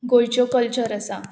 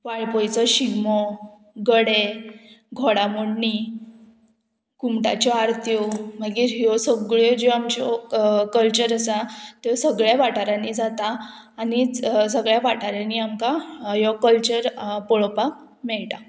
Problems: constant background noise